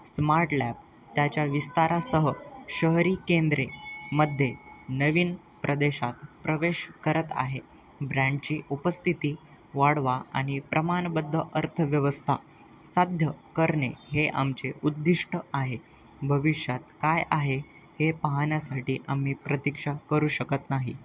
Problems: none marked